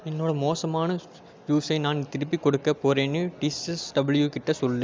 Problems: constant background noise